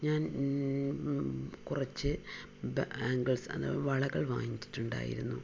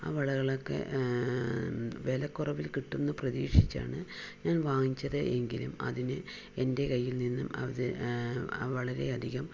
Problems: none marked